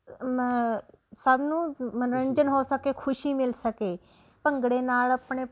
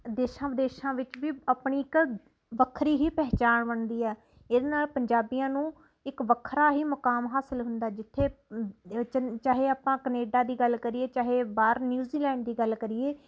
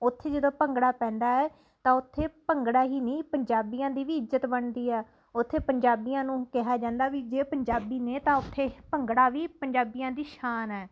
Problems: constant background noise